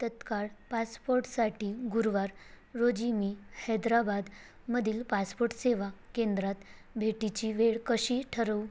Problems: constant background noise